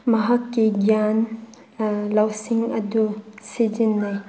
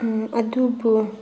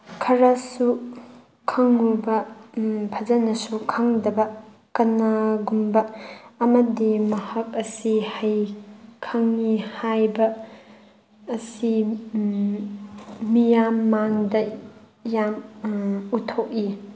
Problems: none marked